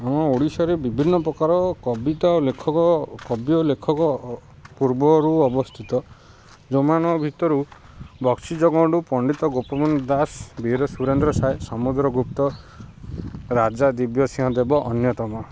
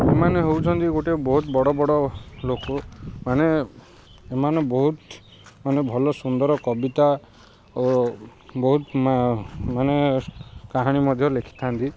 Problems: constant background noise